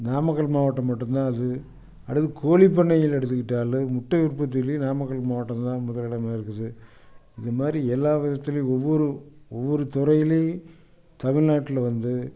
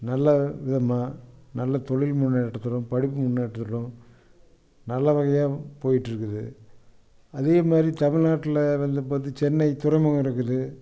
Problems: none marked